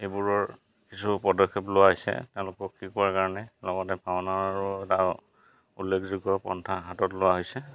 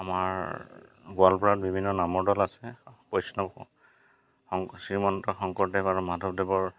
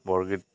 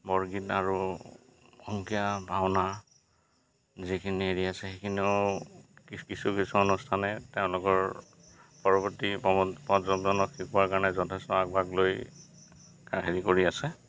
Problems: none marked